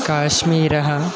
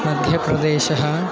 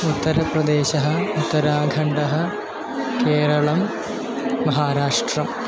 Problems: constant background noise